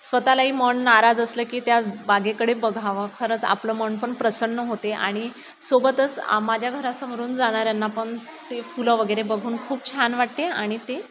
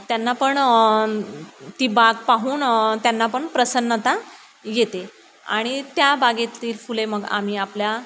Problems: none marked